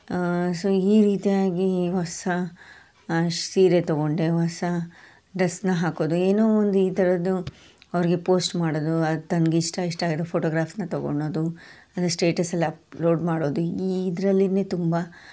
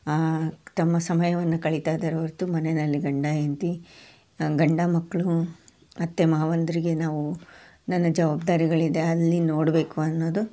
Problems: none marked